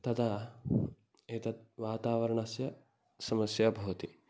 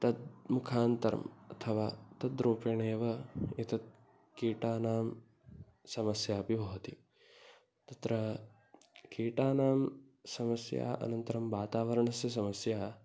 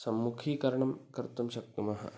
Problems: background sounds at intervals